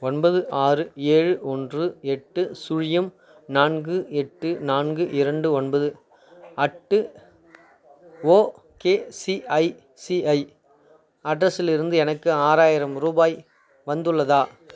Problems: constant background noise